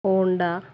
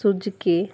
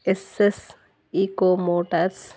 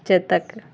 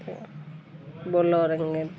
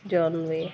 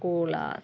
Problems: none marked